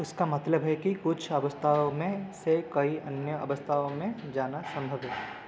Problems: constant background noise